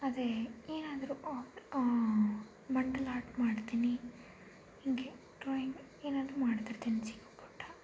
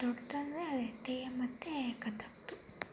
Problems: low volume